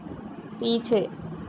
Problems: constant background noise